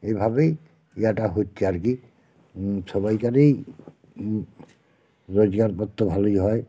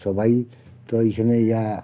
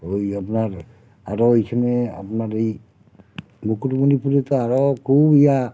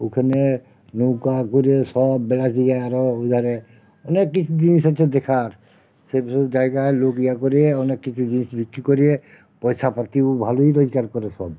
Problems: constant background noise